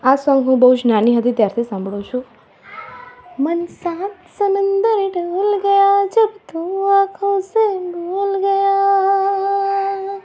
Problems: constant background noise